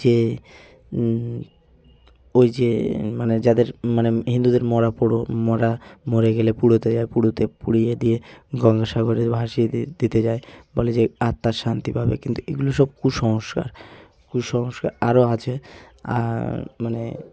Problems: constant background noise, background conversations at intervals